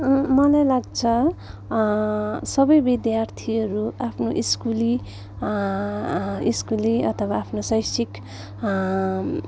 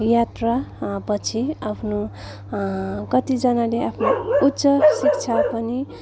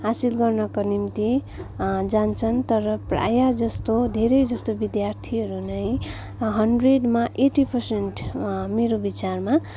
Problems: continuous background conversations